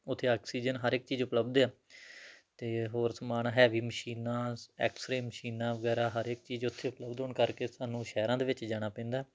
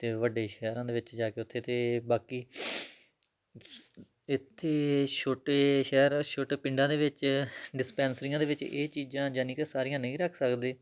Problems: none marked